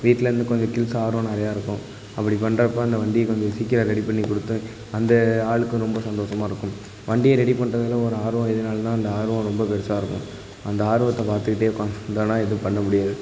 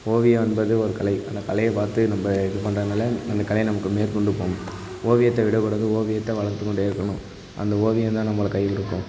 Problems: constant background noise